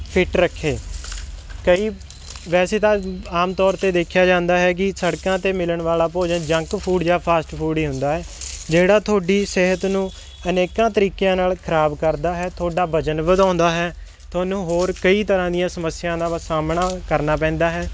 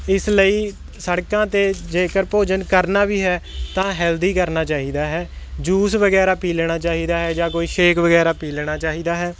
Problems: constant background noise